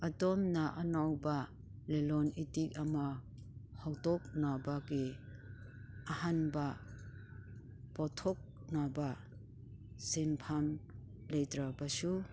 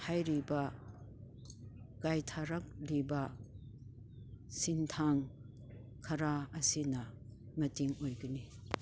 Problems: none marked